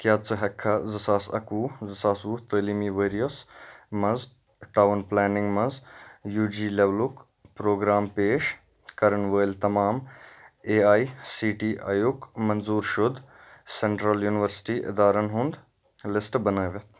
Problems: none marked